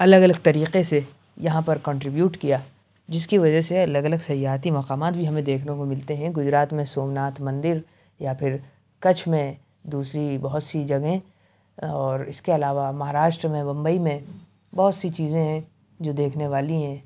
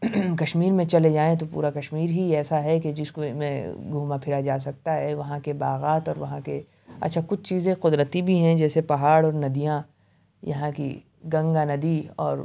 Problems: background sounds at intervals